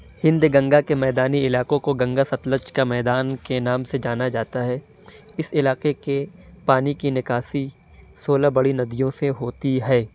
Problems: none marked